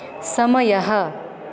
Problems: constant background noise